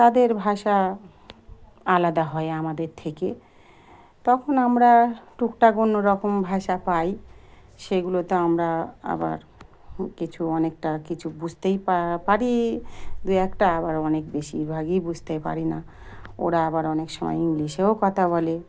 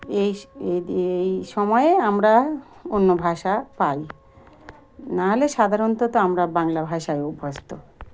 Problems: background sounds at intervals